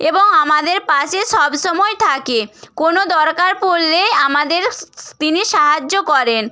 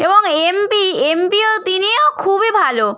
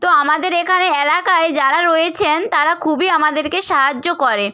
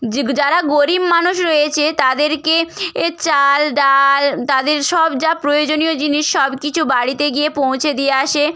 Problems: none marked